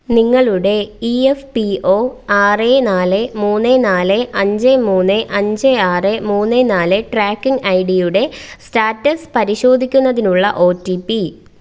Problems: none marked